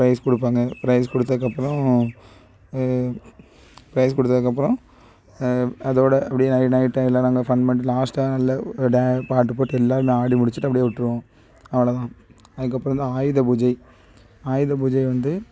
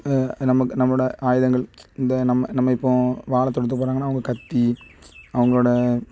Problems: background sounds at intervals